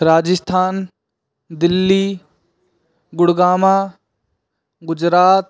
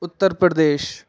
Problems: background sounds at intervals